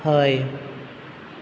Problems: constant background noise